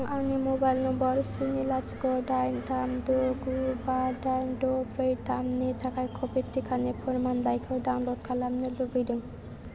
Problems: none marked